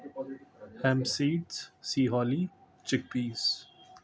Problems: constant background noise